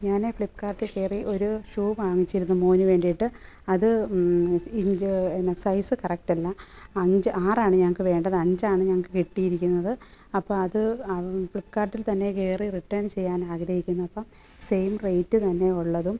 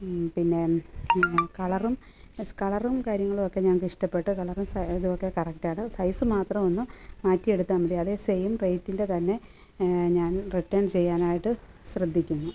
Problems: background sounds at intervals